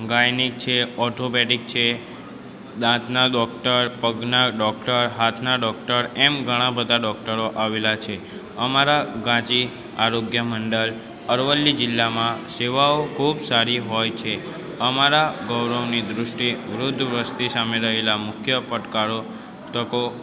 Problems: continuous background conversations